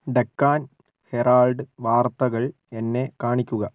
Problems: low volume